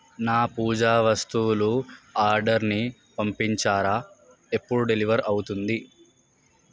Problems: none marked